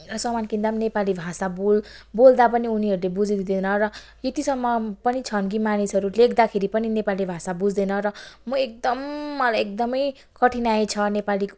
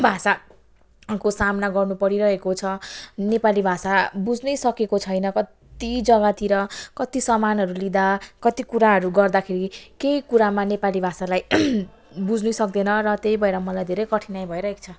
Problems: background sounds at intervals